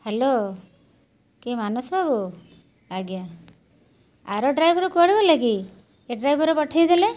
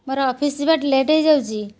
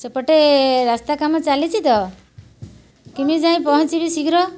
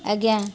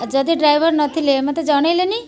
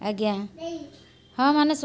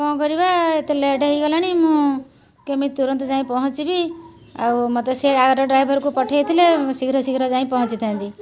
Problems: constant background noise, continuous background conversations